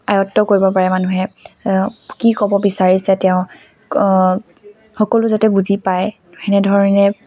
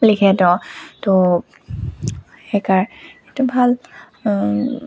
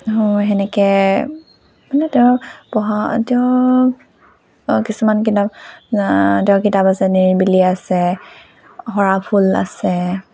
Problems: constant background noise